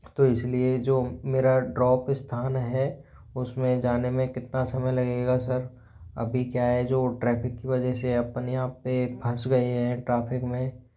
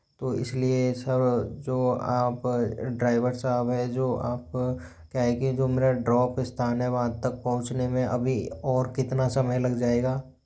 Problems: background sounds at intervals